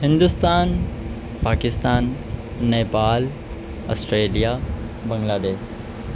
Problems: constant background noise